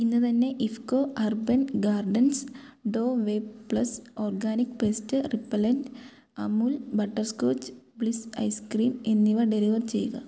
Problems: none marked